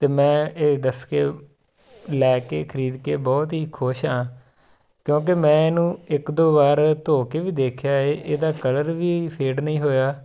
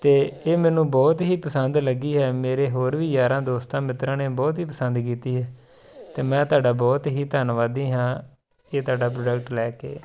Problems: constant background noise